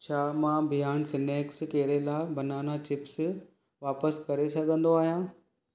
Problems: none marked